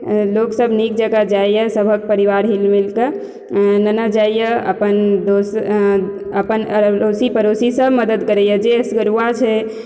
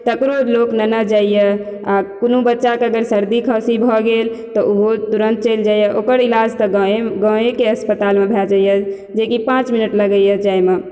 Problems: none marked